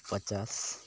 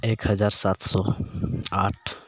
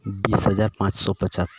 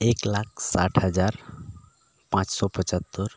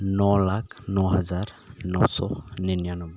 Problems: constant background noise